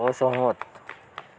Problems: constant background noise, background conversations at intervals